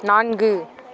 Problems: none marked